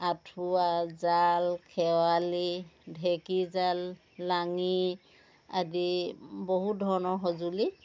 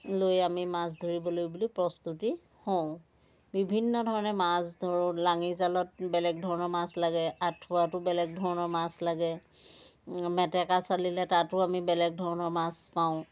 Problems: background sounds at intervals, continuous background conversations